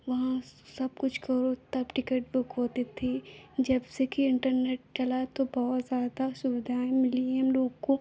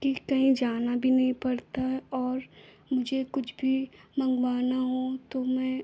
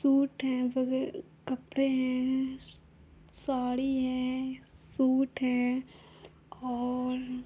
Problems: constant background noise